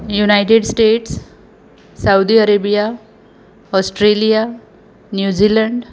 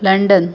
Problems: background sounds at intervals